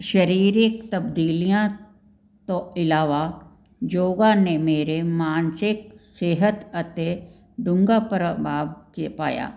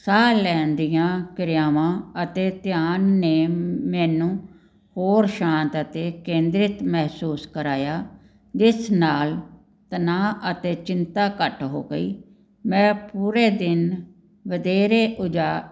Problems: none marked